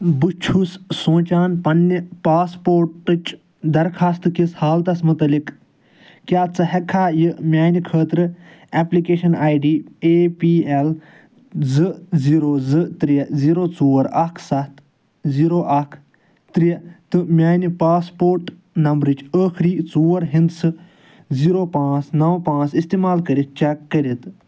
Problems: none marked